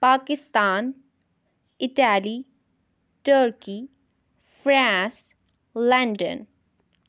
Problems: none marked